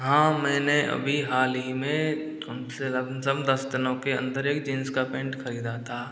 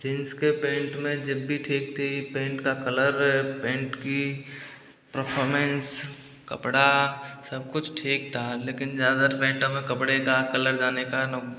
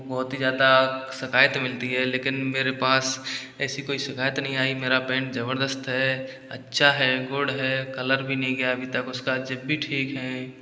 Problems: background sounds at intervals, echo